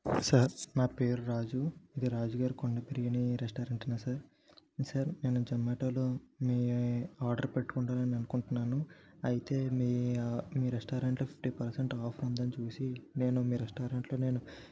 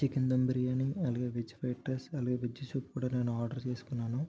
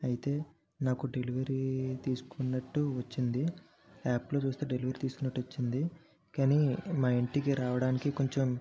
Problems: background sounds at intervals, low volume